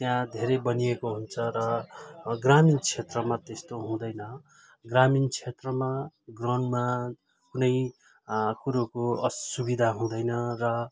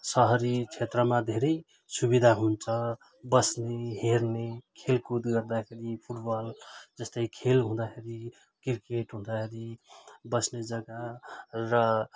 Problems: none marked